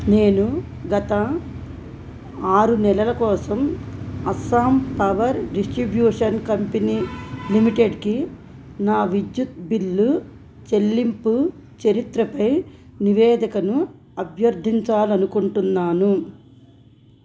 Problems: background sounds at intervals